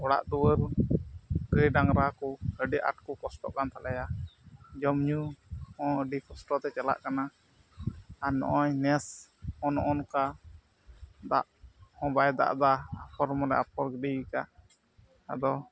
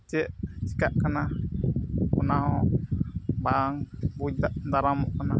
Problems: background sounds at intervals, low volume